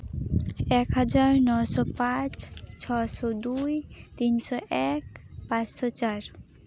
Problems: none marked